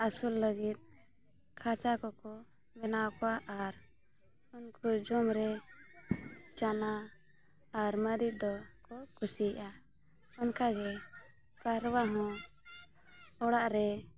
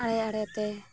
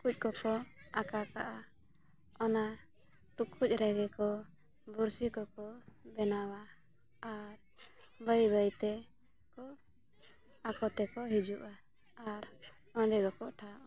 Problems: constant background noise, background conversations at intervals